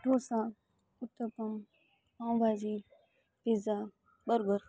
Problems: none marked